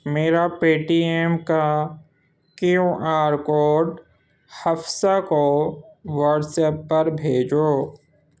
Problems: constant background noise